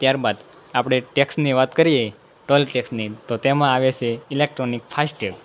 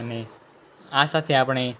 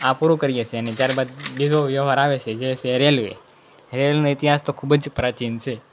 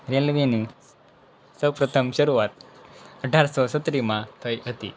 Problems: background conversations at intervals